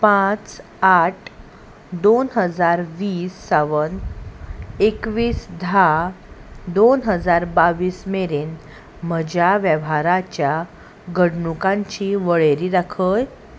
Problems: constant background noise